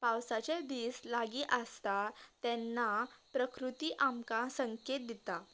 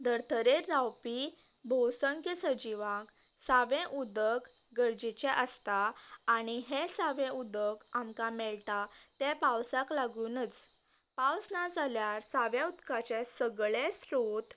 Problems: constant background noise